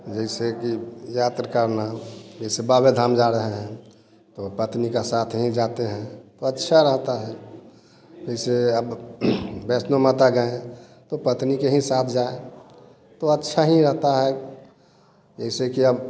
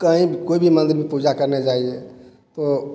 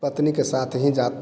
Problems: none marked